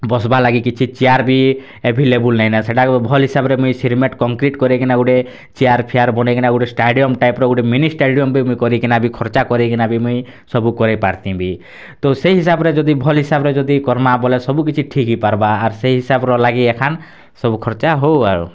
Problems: none marked